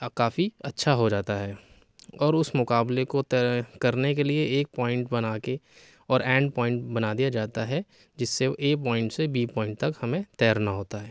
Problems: none marked